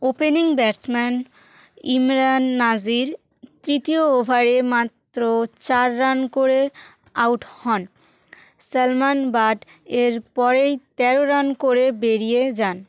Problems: constant background noise